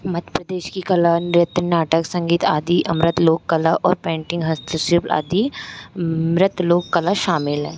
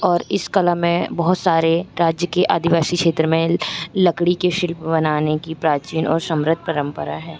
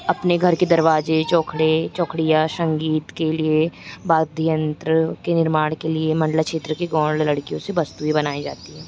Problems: constant background noise